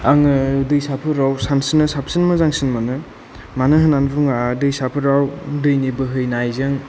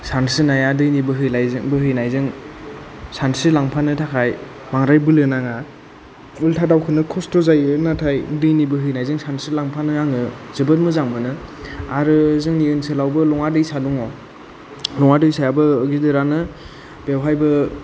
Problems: low volume